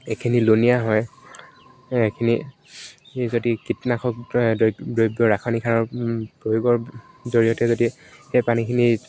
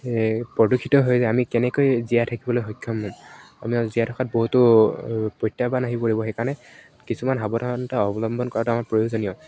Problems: none marked